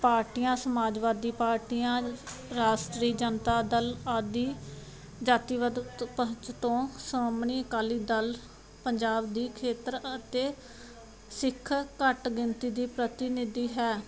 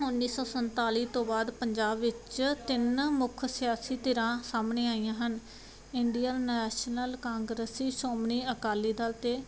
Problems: background sounds at intervals